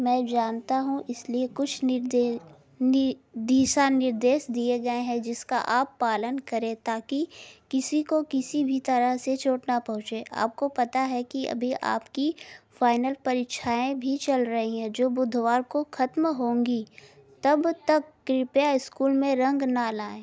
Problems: background sounds at intervals, background conversations at intervals